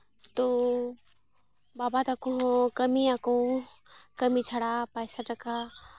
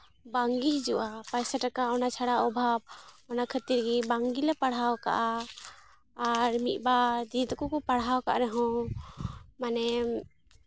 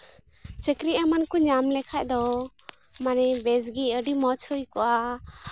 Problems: background sounds at intervals